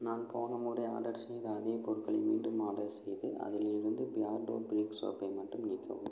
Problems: low volume